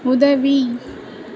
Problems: constant background noise